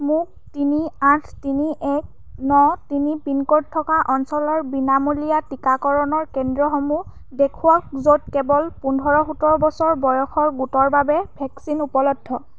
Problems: background sounds at intervals